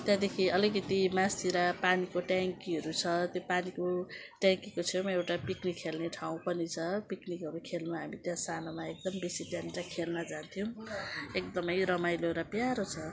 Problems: none marked